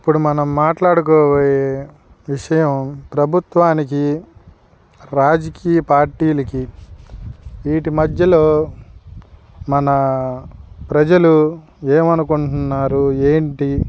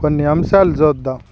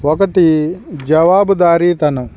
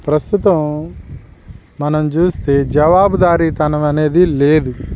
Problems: background sounds at intervals